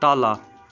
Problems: continuous background conversations